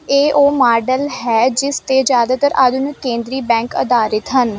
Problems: none marked